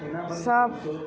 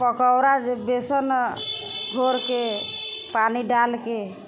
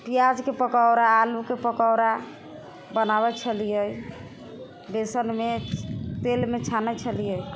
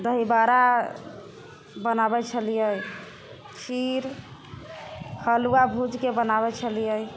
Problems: background conversations at intervals